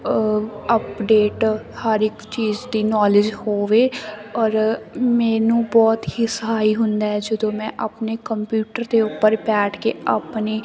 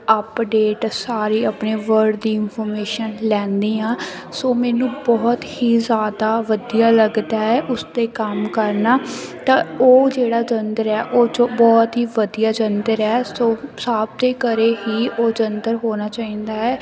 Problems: constant background noise